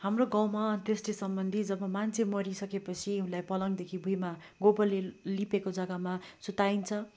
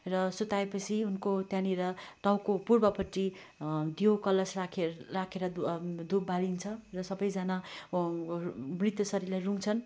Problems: constant background noise